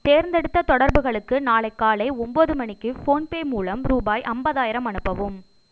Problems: none marked